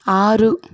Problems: none marked